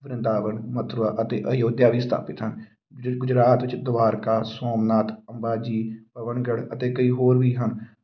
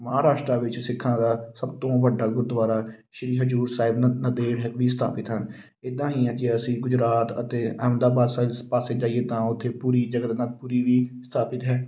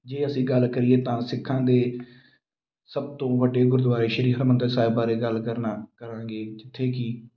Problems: background sounds at intervals